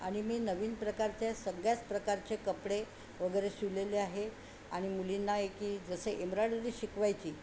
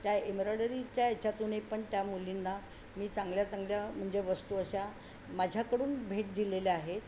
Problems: none marked